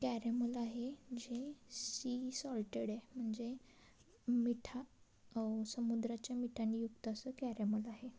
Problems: constant background noise, low volume